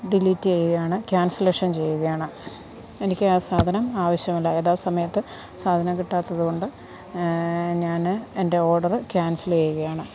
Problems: none marked